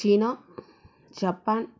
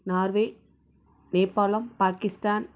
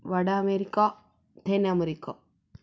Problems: low volume